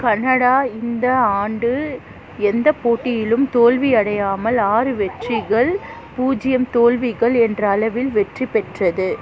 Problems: constant background noise, background conversations at intervals